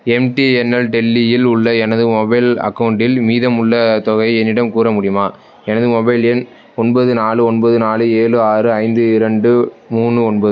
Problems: none marked